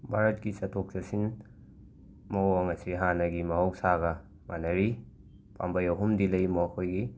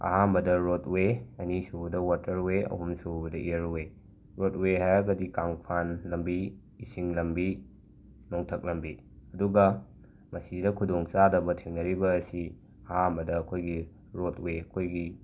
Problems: background sounds at intervals